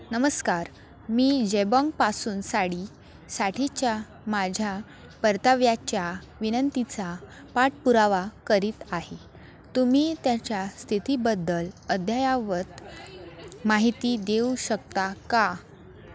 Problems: constant background noise, continuous background conversations